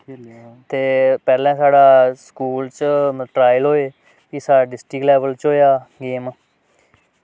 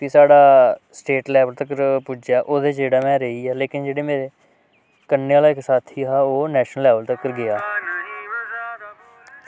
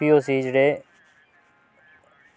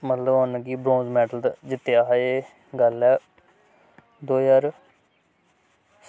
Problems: none marked